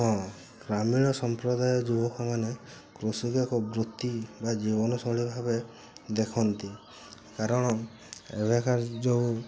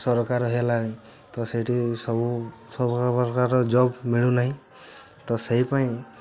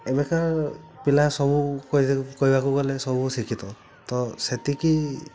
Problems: constant background noise